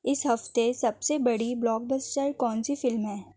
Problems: none marked